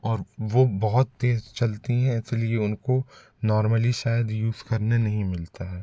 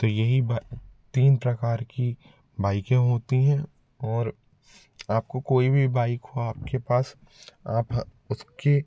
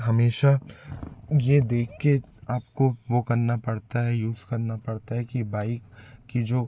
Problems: constant background noise, background conversations at intervals